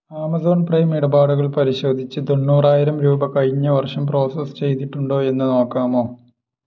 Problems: none marked